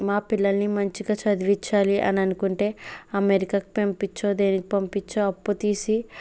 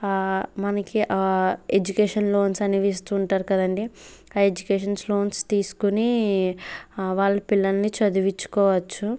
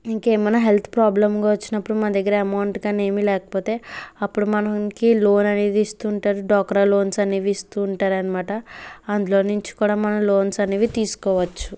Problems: background sounds at intervals